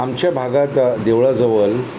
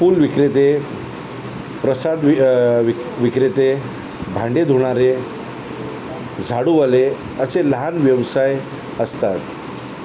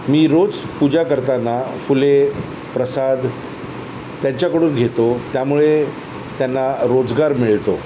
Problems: constant background noise